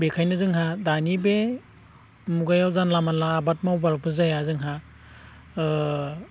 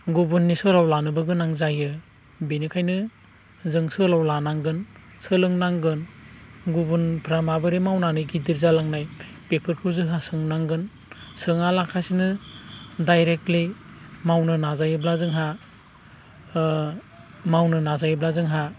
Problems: constant background noise